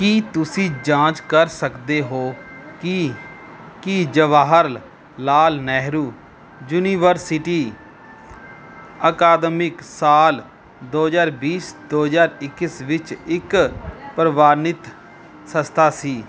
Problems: constant background noise, background conversations at intervals